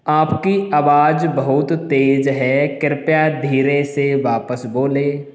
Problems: none marked